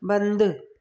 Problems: echo